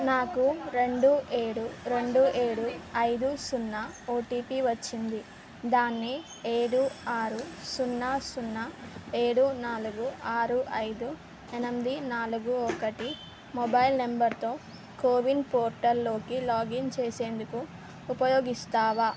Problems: none marked